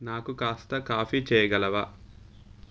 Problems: none marked